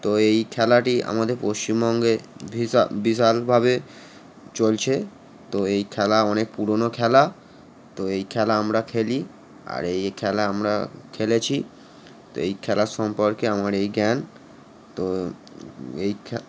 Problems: none marked